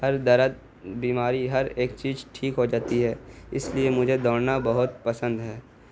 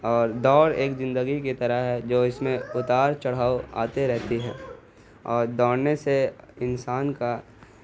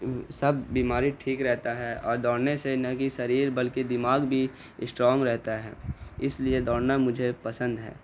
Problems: constant background noise